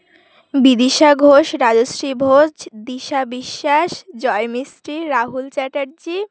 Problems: constant background noise